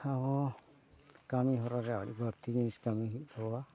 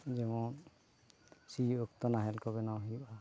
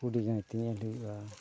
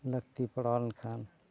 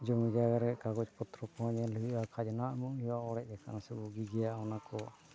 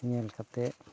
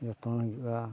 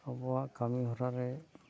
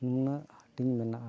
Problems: background sounds at intervals